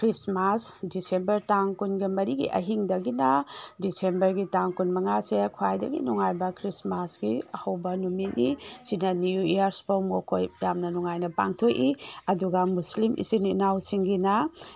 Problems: background sounds at intervals